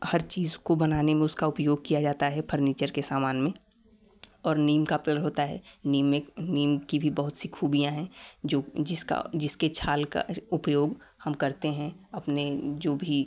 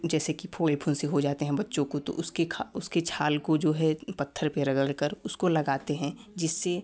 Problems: background sounds at intervals